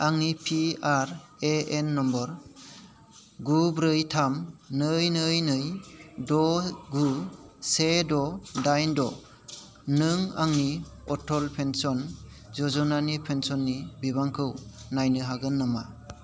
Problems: constant background noise